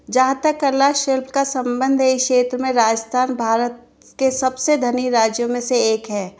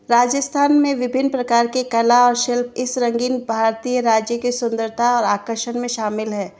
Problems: background sounds at intervals